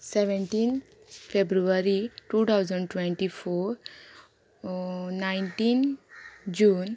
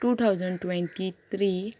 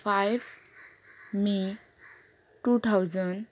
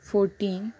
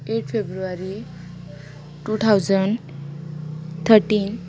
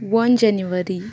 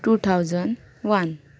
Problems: low volume